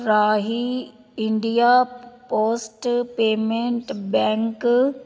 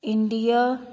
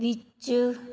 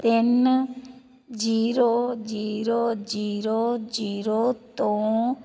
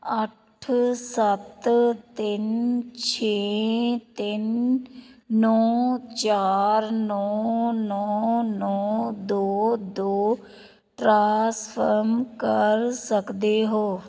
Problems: background conversations at intervals